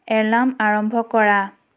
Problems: none marked